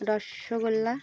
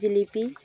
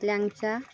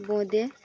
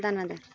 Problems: constant background noise, continuous background conversations